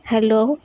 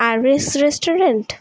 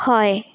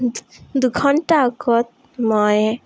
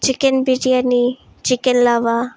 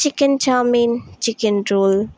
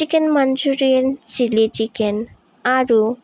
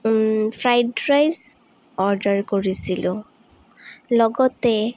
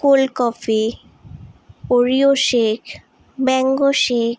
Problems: none marked